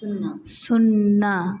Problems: background sounds at intervals